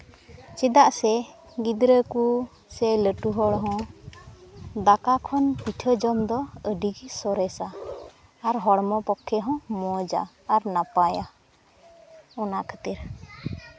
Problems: continuous background conversations